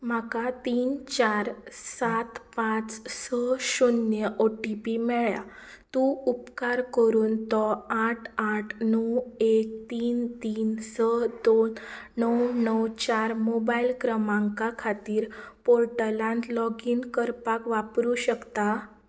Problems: background sounds at intervals